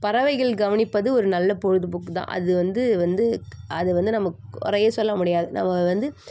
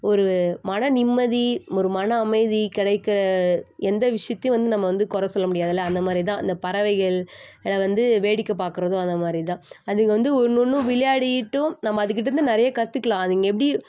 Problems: constant background noise